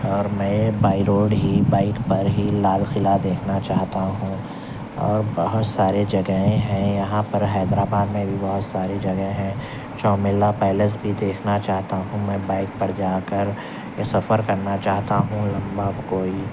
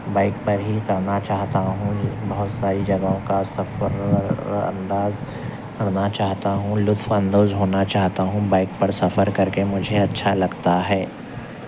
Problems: constant background noise, low volume